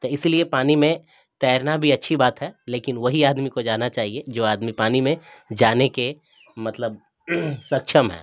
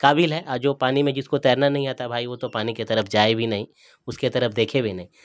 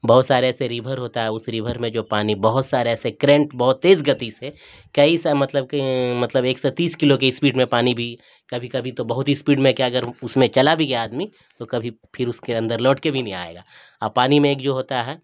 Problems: constant background noise